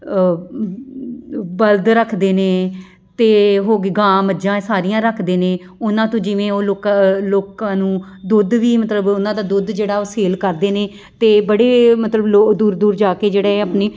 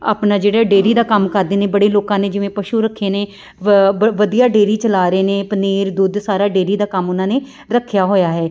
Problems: none marked